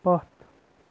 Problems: low volume